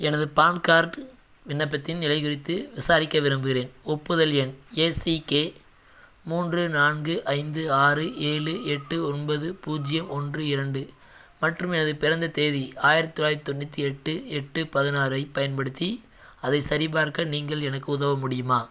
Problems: none marked